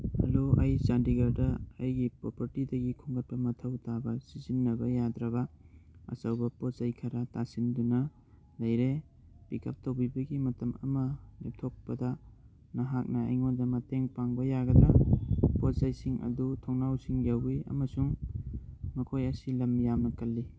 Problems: none marked